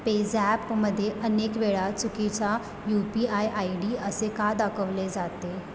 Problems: background sounds at intervals